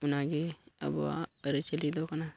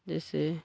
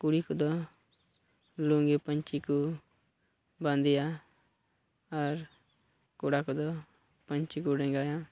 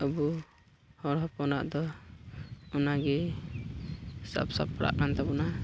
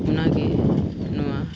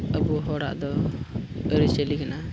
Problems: none marked